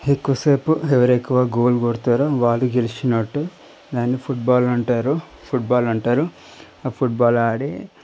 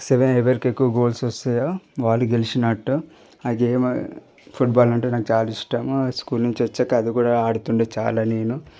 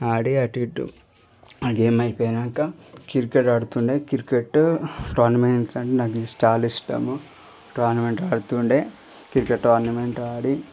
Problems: none marked